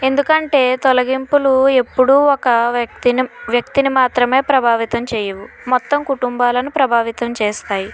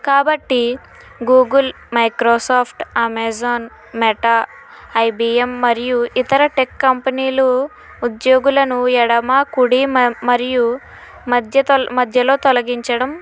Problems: constant background noise